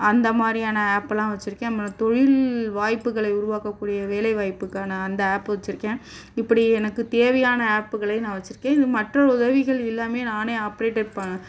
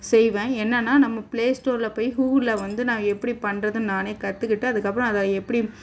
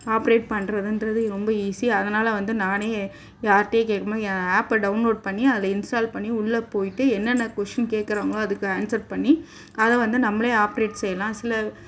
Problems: background sounds at intervals